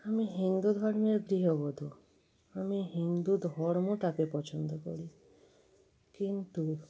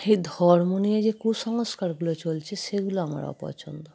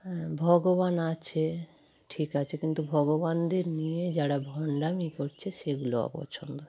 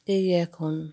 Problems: constant background noise